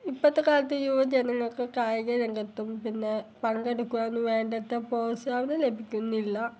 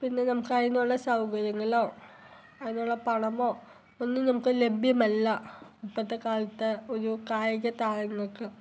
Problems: background sounds at intervals